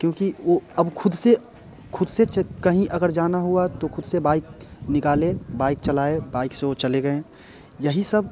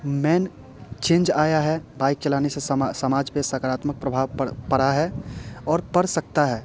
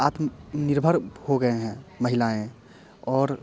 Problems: background sounds at intervals